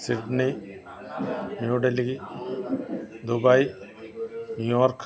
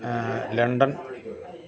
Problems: none marked